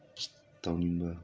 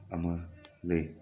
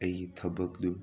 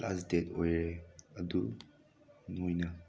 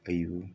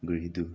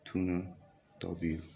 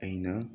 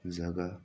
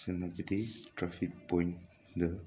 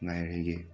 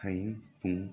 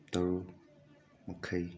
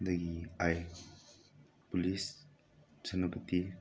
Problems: constant background noise